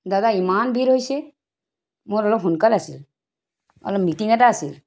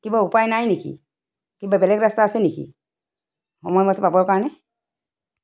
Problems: background sounds at intervals